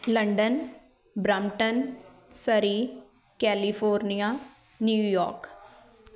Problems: continuous background conversations